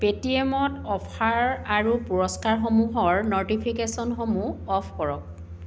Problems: background sounds at intervals